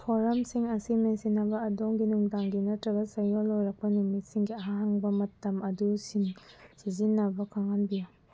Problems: low volume